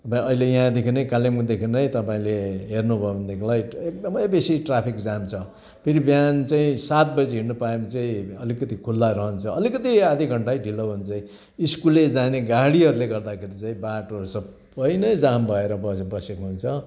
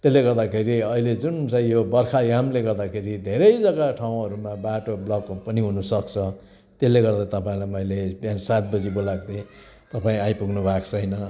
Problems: constant background noise, continuous background conversations